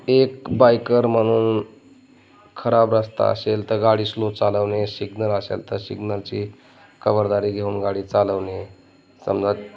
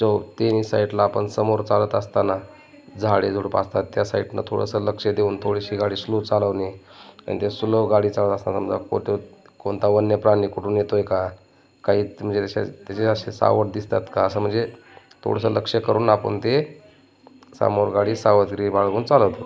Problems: constant background noise, continuous background conversations